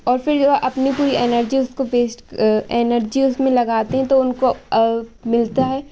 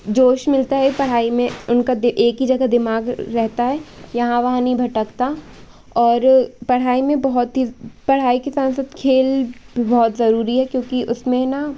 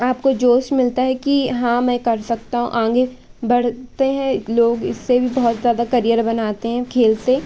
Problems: background sounds at intervals